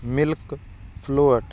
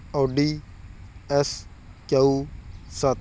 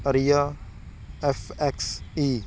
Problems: none marked